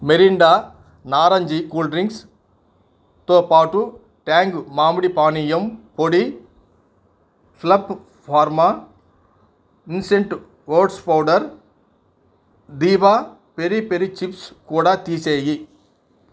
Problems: none marked